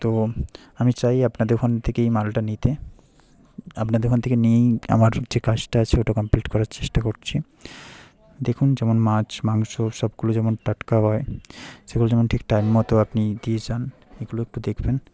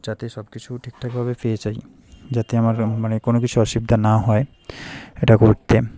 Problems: background conversations at intervals